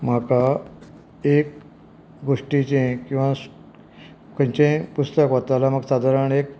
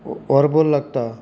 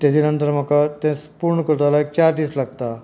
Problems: background conversations at intervals